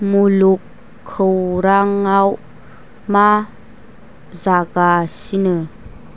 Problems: constant background noise